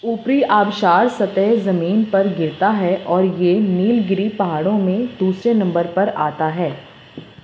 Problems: background sounds at intervals